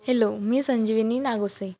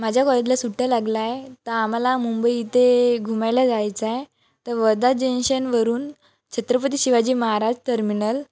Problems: none marked